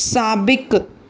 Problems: none marked